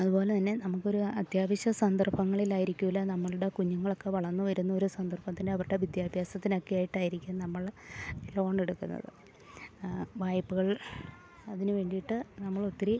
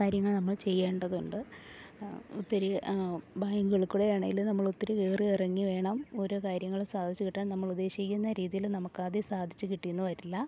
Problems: none marked